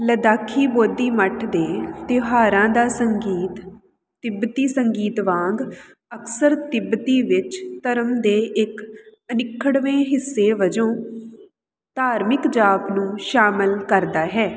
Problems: none marked